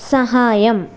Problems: none marked